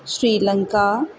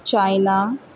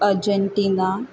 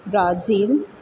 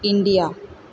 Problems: background sounds at intervals